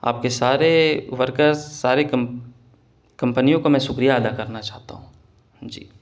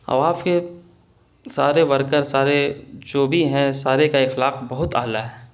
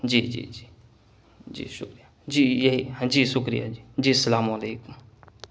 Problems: constant background noise